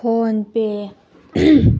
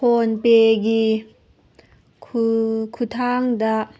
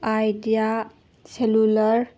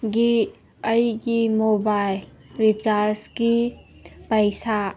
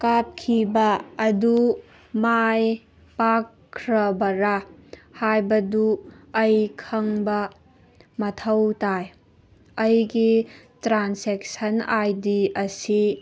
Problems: background sounds at intervals